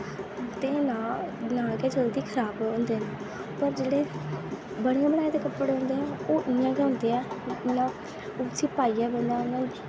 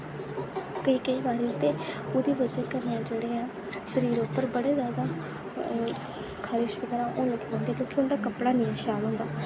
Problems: constant background noise